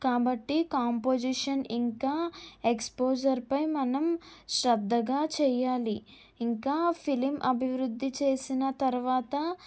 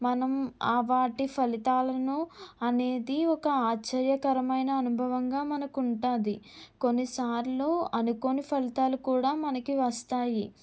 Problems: none marked